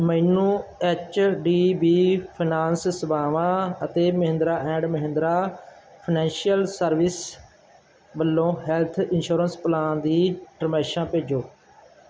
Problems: background sounds at intervals